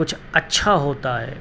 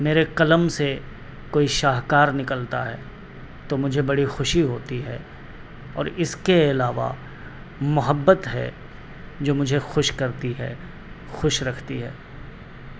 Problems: constant background noise